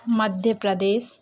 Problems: background sounds at intervals